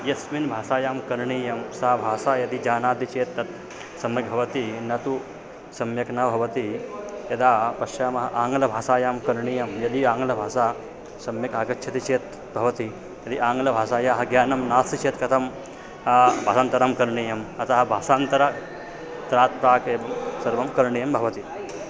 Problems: none marked